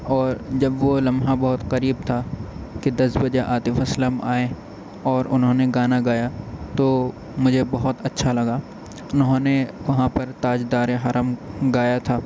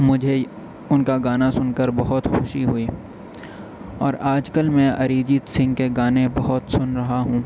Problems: background conversations at intervals